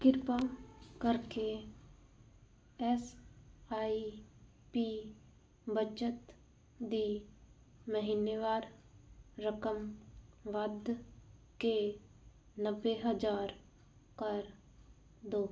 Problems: none marked